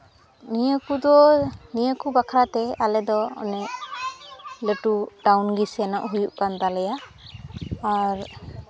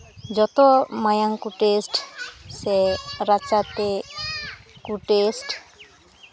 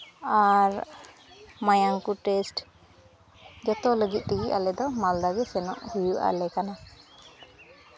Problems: constant background noise, background conversations at intervals